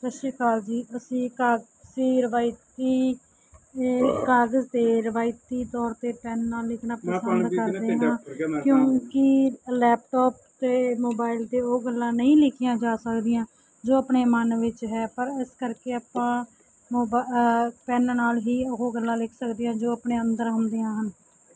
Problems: background sounds at intervals, background conversations at intervals